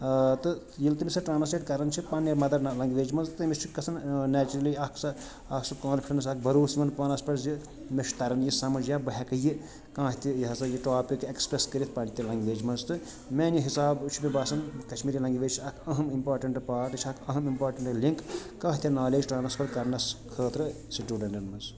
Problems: constant background noise, background conversations at intervals